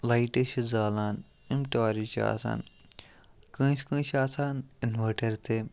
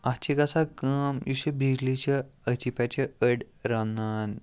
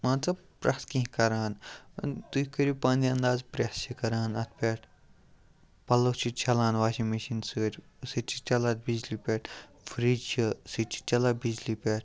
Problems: background sounds at intervals